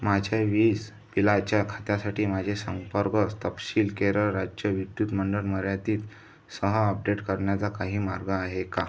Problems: none marked